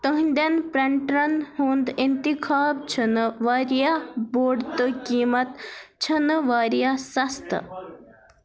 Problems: background sounds at intervals